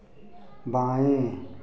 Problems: background sounds at intervals